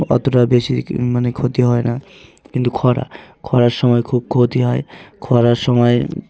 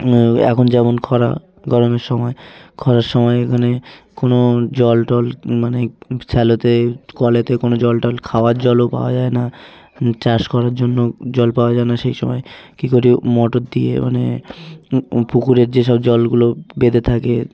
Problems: constant background noise, continuous background conversations